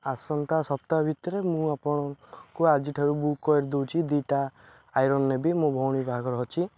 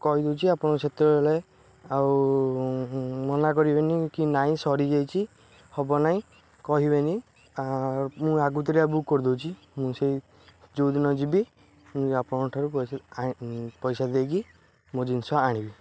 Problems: none marked